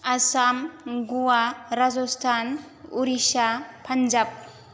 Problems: none marked